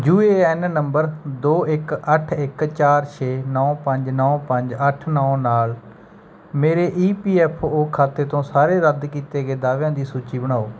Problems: background sounds at intervals